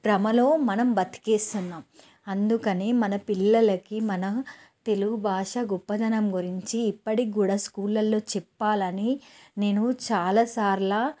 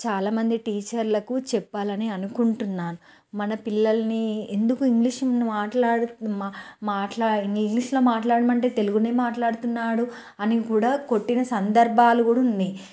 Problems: none marked